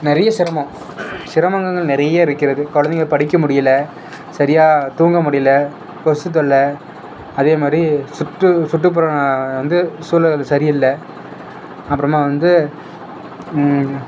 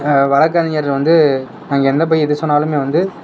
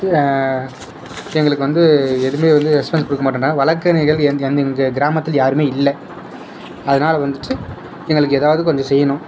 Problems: constant background noise